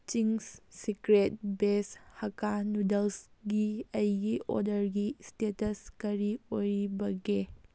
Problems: none marked